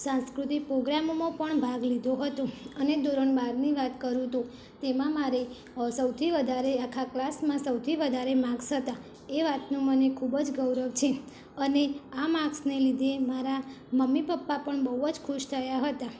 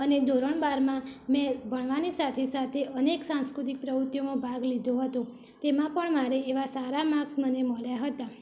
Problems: constant background noise